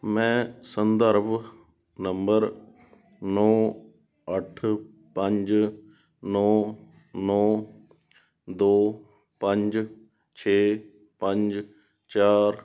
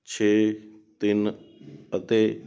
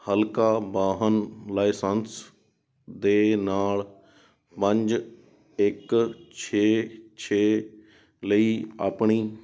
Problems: none marked